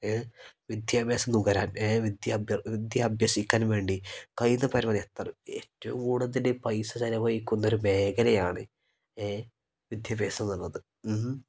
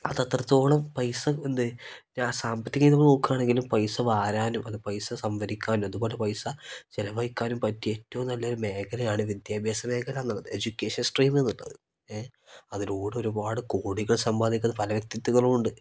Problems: none marked